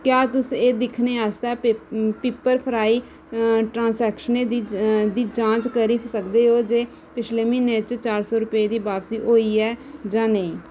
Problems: none marked